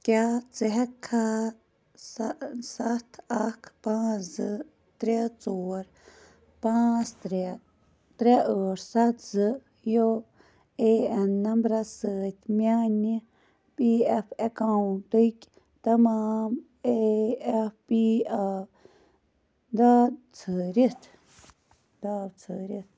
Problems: none marked